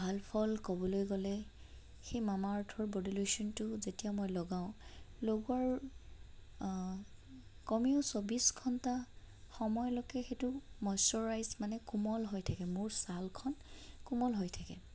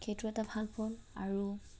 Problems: constant background noise, low volume